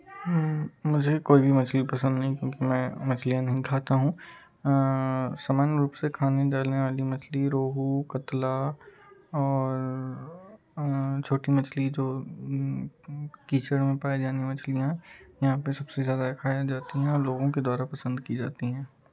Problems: continuous background conversations